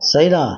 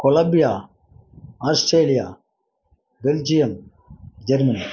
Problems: constant background noise